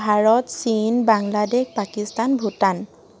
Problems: constant background noise